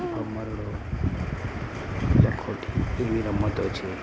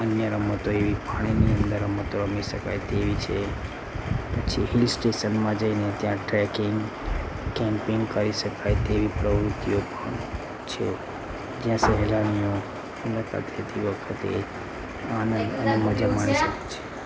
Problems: constant background noise